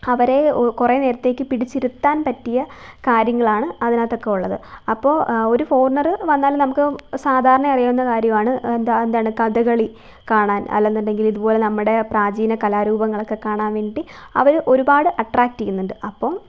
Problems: none marked